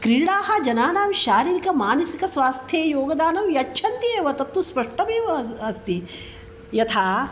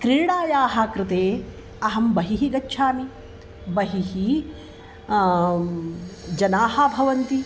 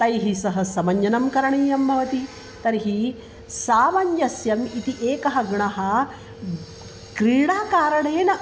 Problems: none marked